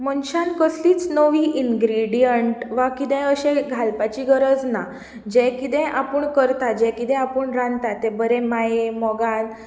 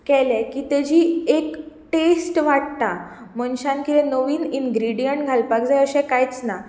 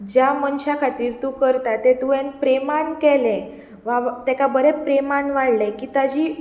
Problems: none marked